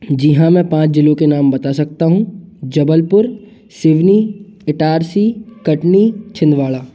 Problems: background sounds at intervals